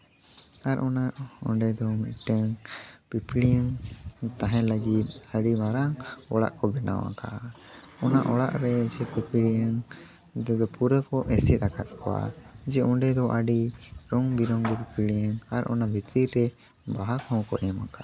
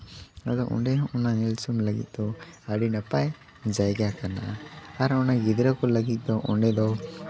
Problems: none marked